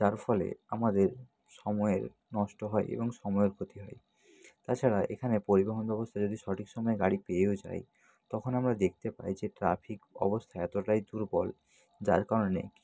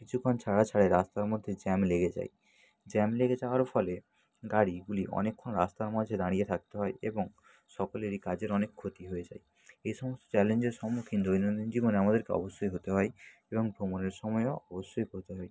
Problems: none marked